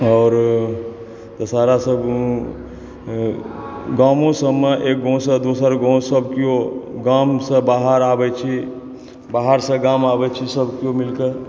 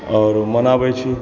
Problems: background sounds at intervals, background conversations at intervals